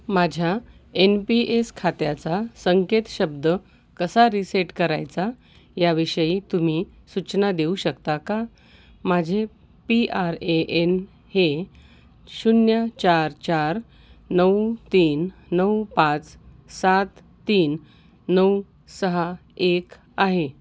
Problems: none marked